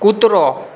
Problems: constant background noise